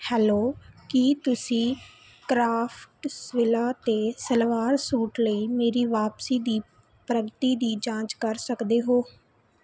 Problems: none marked